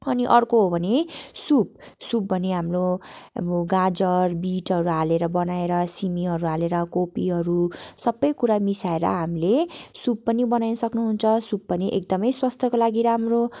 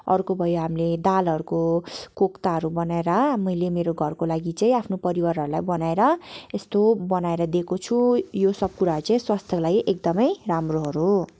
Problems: background sounds at intervals